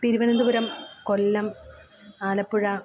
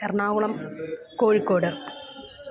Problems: background sounds at intervals